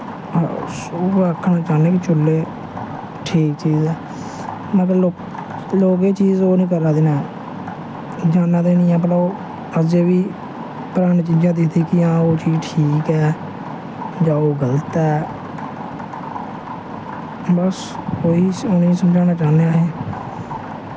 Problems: constant background noise